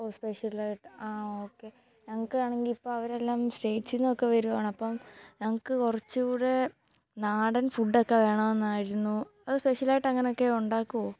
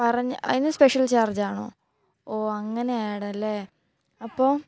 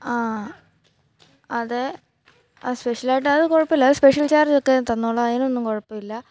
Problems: background sounds at intervals